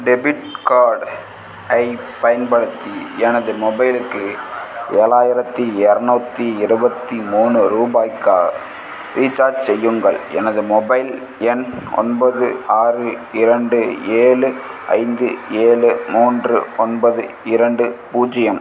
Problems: background sounds at intervals